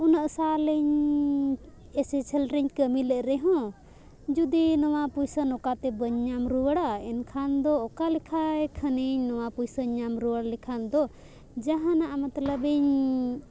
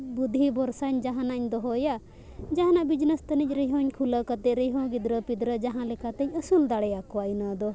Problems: constant background noise